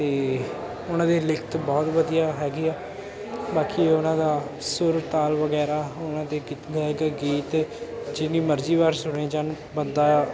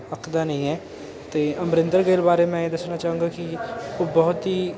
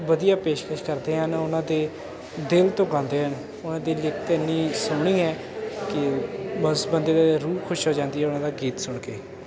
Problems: constant background noise